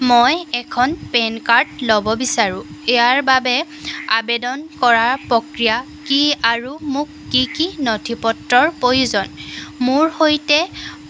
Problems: none marked